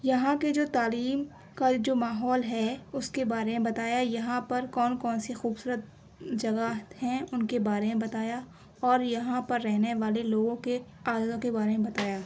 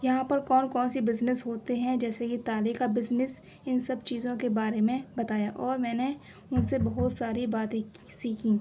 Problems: background sounds at intervals